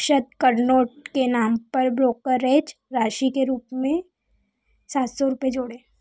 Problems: none marked